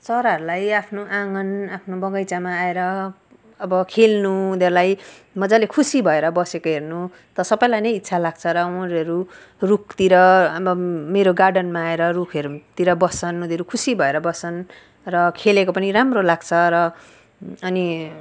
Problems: none marked